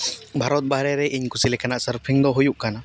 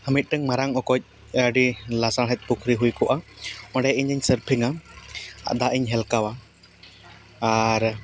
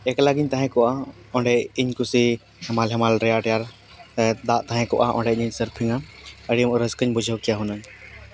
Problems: background sounds at intervals, background conversations at intervals